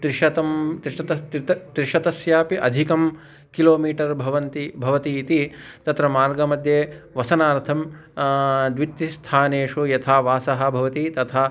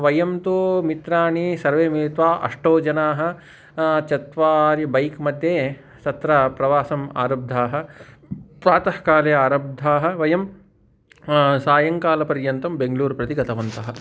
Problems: background sounds at intervals